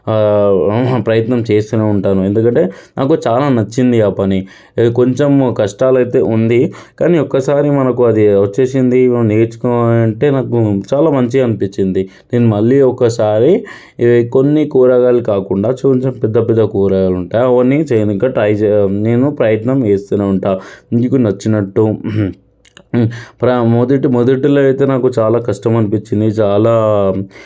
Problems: background sounds at intervals